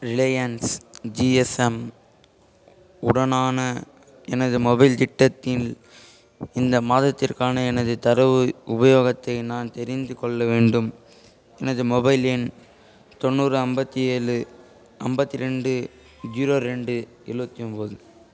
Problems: constant background noise, background conversations at intervals